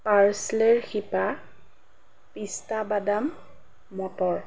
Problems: none marked